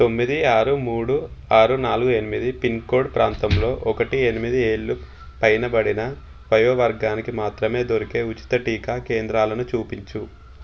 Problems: constant background noise